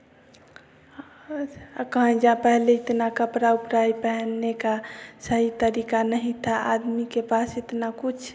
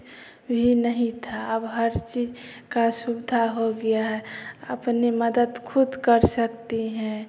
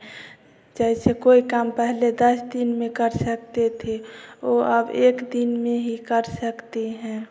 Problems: none marked